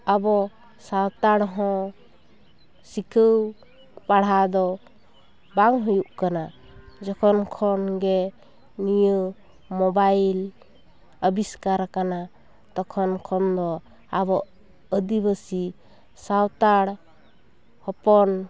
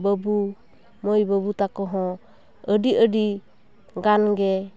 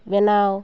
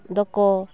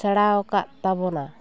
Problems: none marked